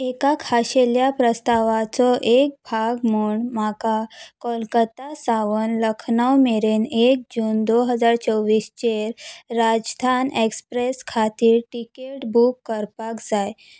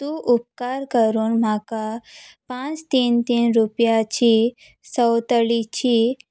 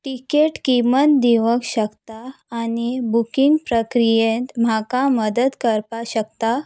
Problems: none marked